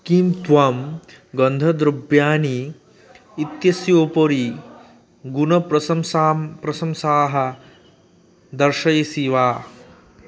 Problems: background sounds at intervals